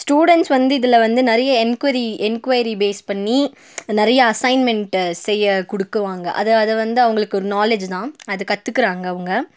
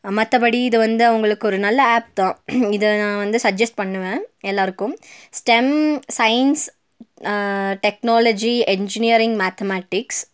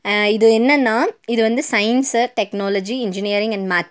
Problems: none marked